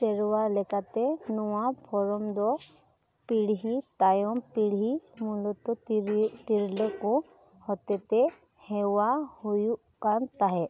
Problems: none marked